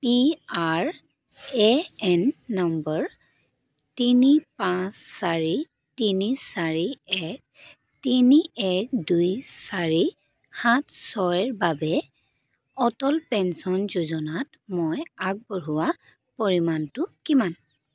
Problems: none marked